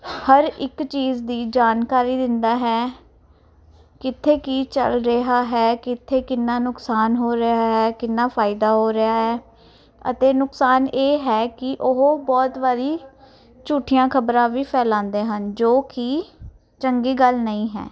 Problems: none marked